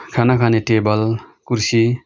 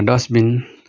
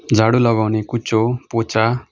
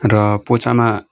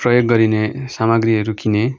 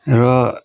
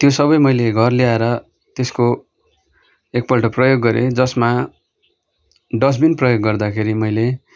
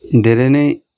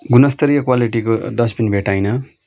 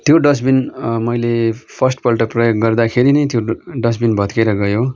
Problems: background sounds at intervals